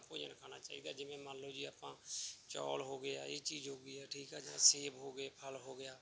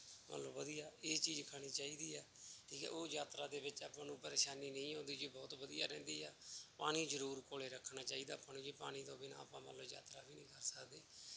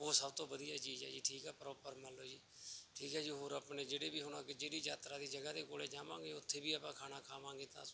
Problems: none marked